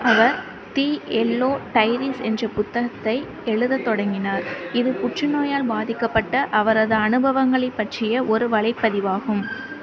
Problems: constant background noise